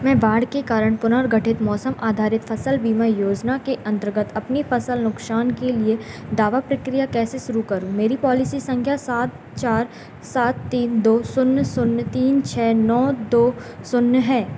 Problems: constant background noise